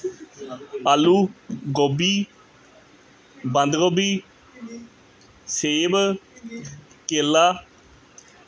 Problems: continuous background conversations